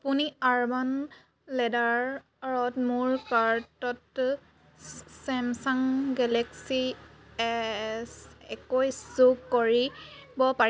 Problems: none marked